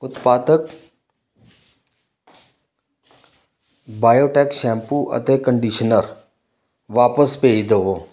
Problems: constant background noise